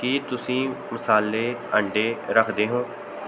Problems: constant background noise